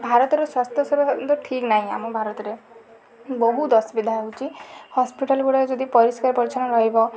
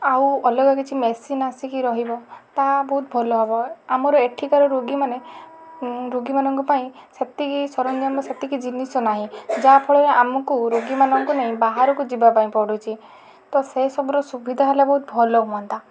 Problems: constant background noise